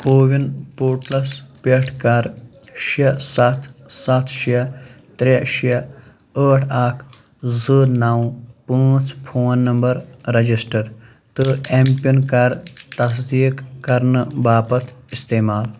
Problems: constant background noise